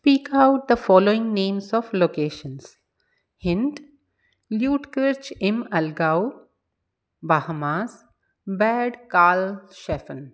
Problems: background sounds at intervals, echo